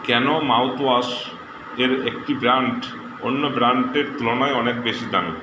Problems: constant background noise